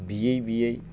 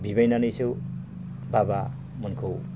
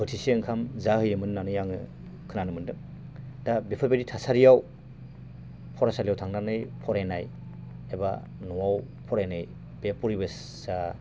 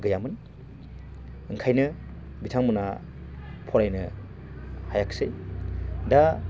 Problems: constant background noise